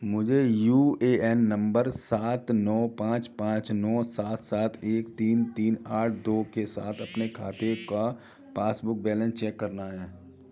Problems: background sounds at intervals, continuous background conversations